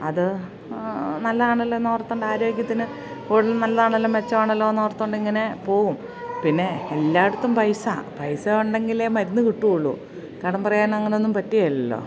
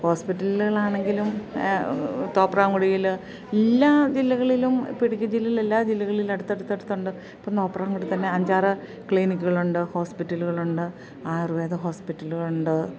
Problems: none marked